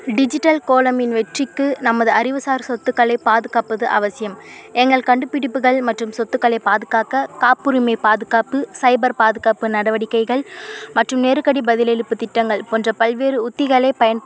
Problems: constant background noise